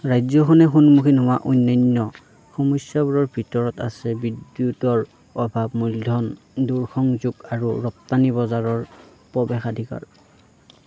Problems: background conversations at intervals